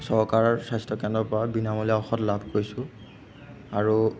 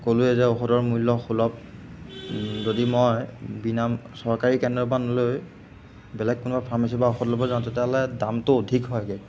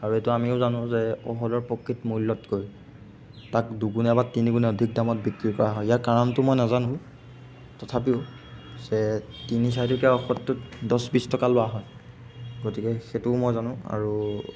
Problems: background sounds at intervals